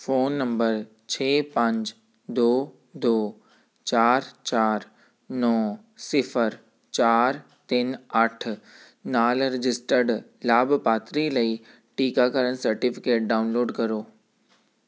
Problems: background sounds at intervals